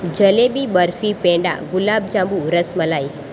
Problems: none marked